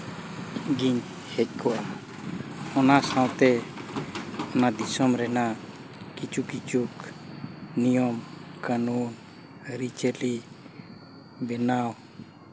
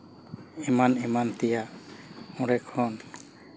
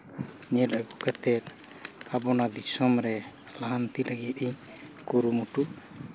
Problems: constant background noise